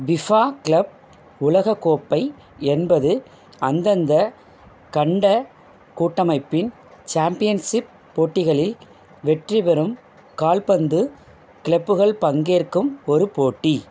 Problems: background sounds at intervals